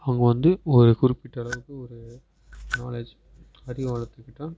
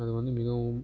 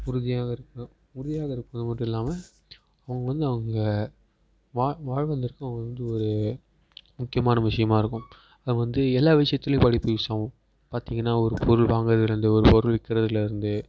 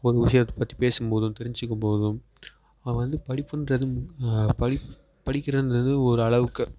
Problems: background sounds at intervals